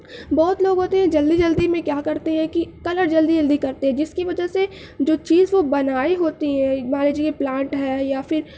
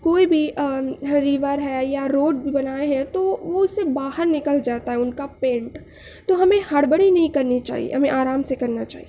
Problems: none marked